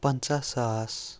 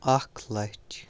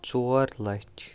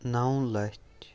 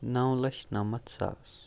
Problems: background sounds at intervals, background conversations at intervals